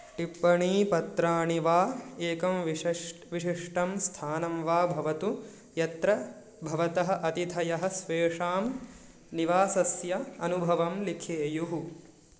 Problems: none marked